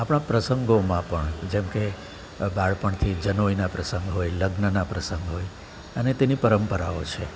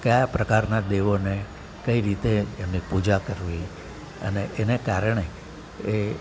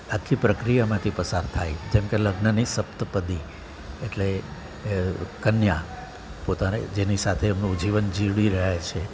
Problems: constant background noise